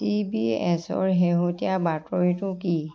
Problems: background sounds at intervals, background conversations at intervals